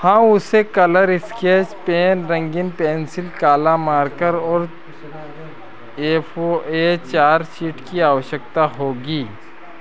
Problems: constant background noise